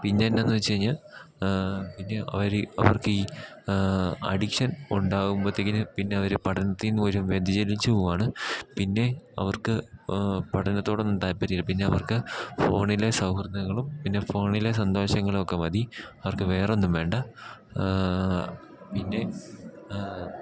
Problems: background sounds at intervals